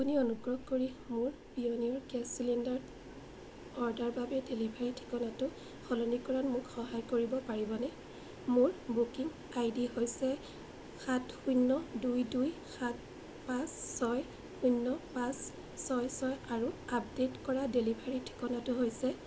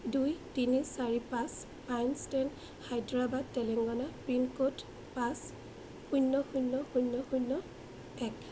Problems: constant background noise